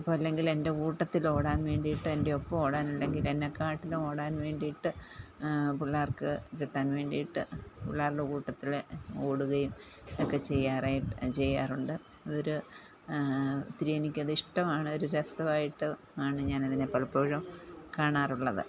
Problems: low volume